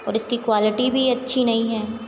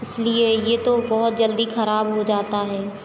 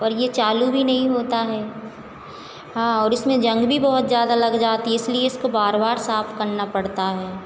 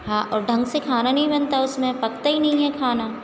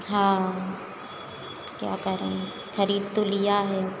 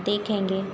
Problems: background sounds at intervals, background conversations at intervals